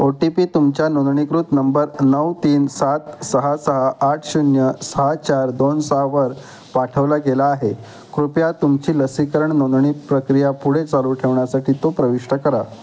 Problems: constant background noise, background conversations at intervals